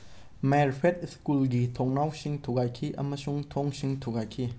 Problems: none marked